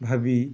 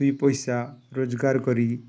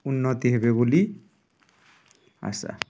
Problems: background conversations at intervals